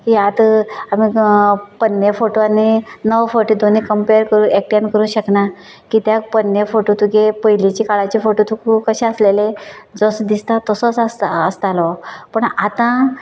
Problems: background sounds at intervals